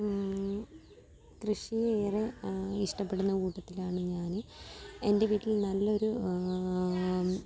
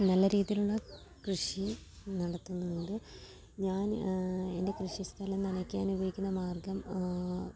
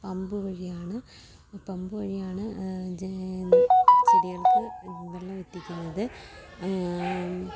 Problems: constant background noise, low volume